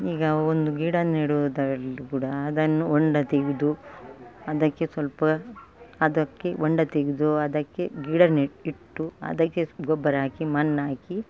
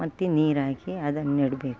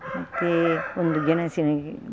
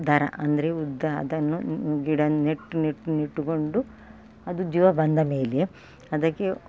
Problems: background sounds at intervals